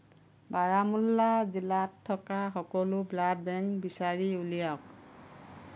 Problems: constant background noise